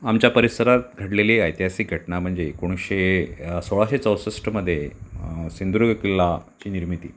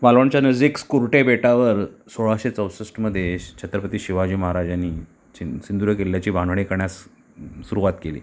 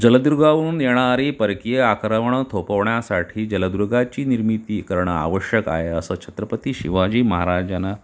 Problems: none marked